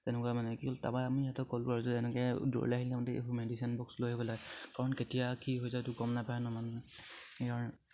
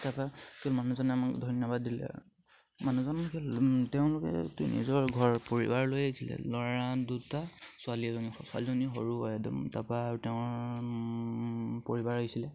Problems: none marked